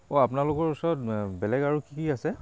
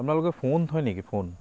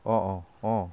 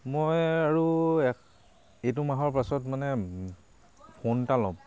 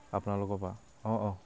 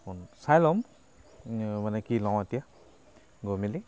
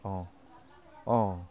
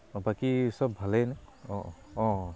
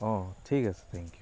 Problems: constant background noise